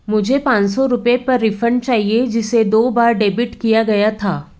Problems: none marked